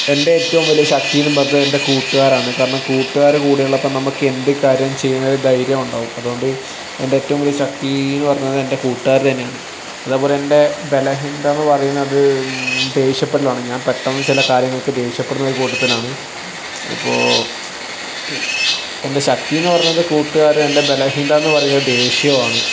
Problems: background sounds at intervals